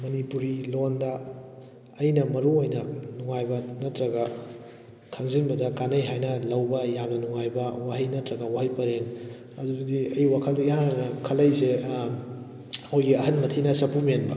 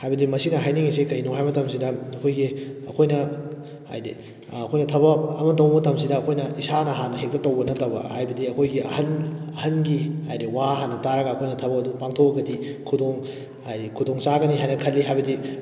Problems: none marked